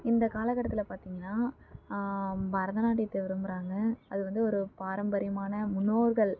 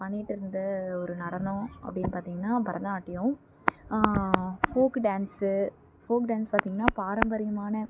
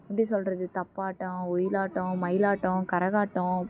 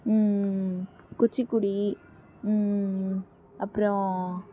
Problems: background sounds at intervals